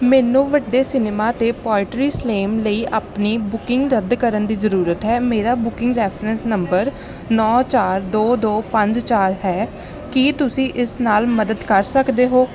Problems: none marked